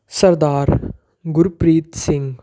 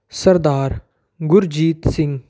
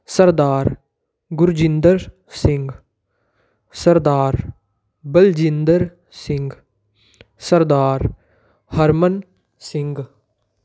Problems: background sounds at intervals